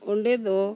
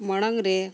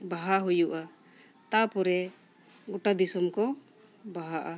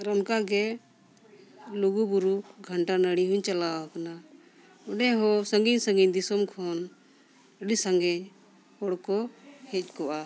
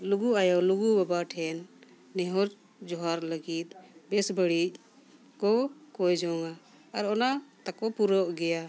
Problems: constant background noise, background conversations at intervals